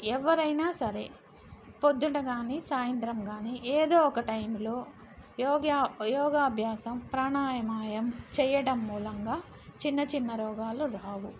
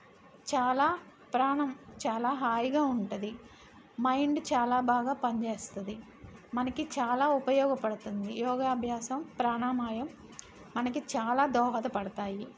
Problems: constant background noise